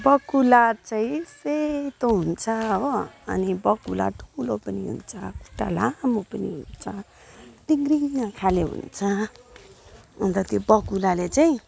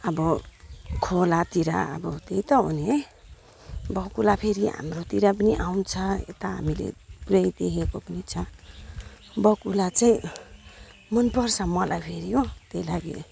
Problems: background sounds at intervals